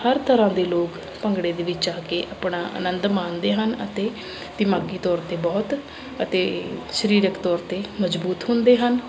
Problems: constant background noise